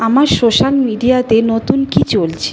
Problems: background conversations at intervals